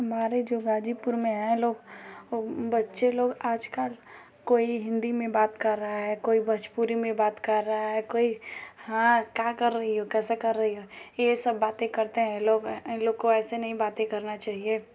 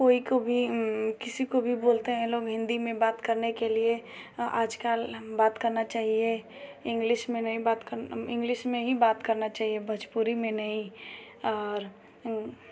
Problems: none marked